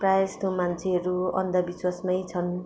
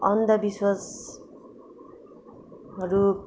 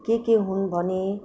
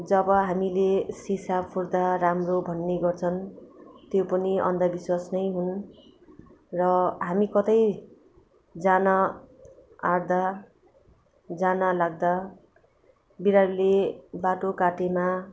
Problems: constant background noise